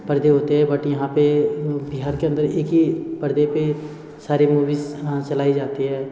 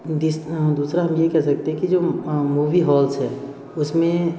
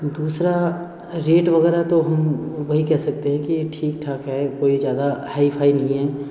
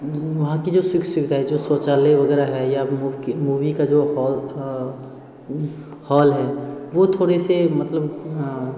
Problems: background sounds at intervals